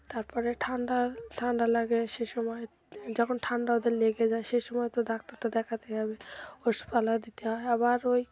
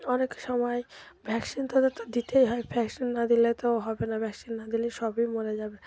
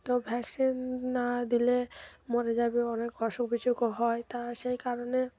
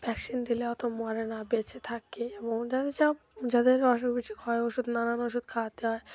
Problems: continuous background conversations